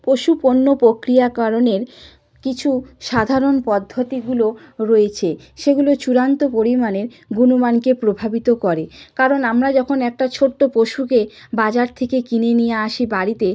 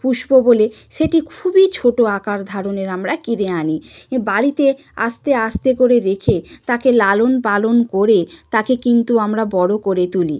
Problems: background sounds at intervals